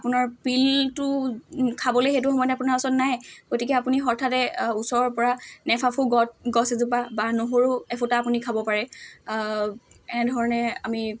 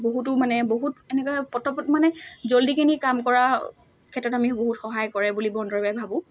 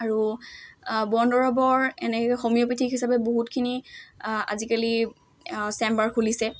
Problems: constant background noise